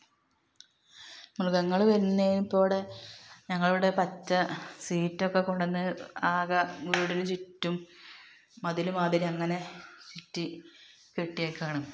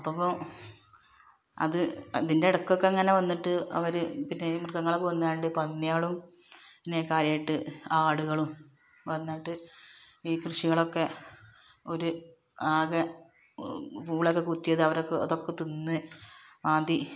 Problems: background sounds at intervals